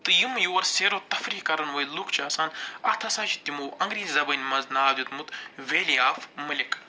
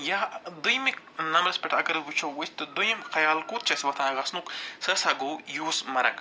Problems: none marked